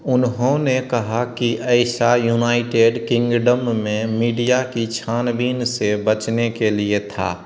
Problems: none marked